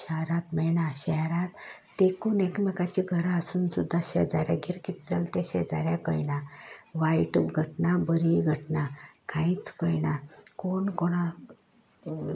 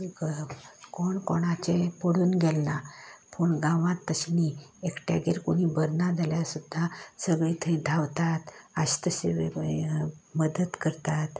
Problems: constant background noise